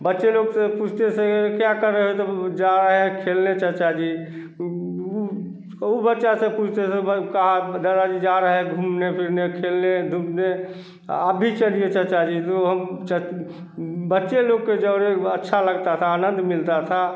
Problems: none marked